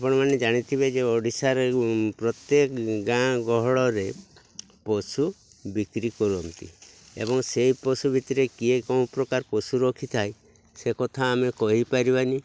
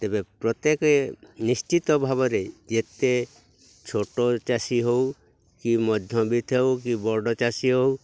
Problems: none marked